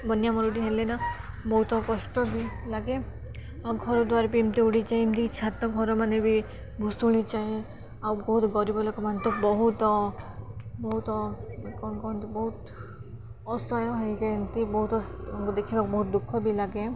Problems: none marked